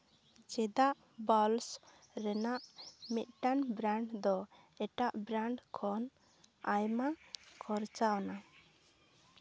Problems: none marked